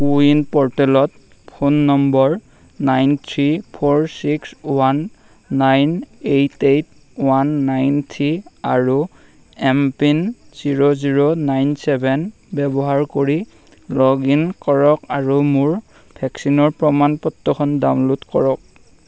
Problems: constant background noise